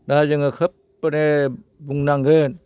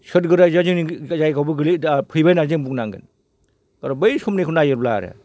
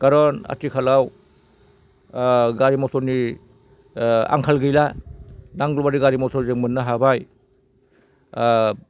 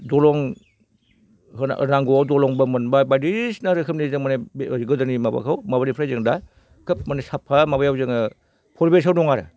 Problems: none marked